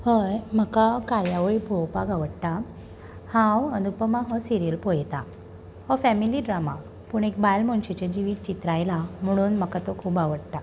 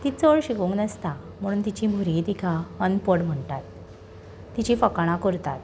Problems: constant background noise